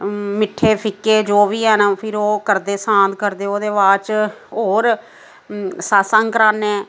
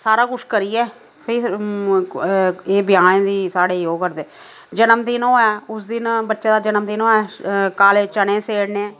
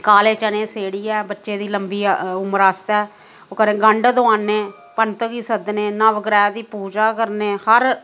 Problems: low volume